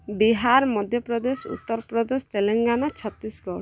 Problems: continuous background conversations